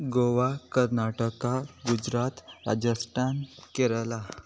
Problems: background sounds at intervals